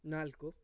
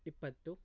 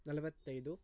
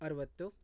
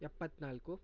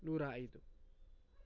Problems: low volume